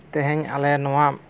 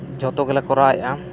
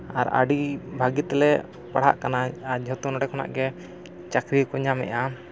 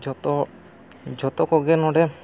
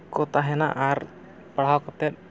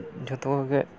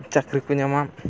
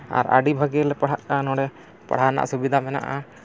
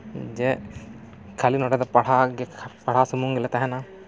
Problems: none marked